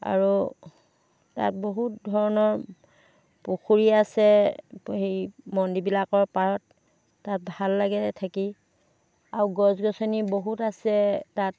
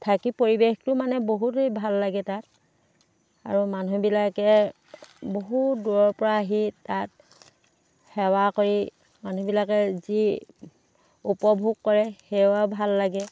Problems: background sounds at intervals